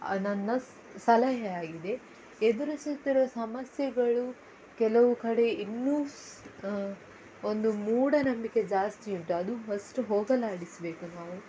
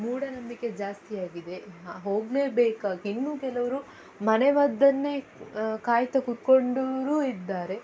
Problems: background sounds at intervals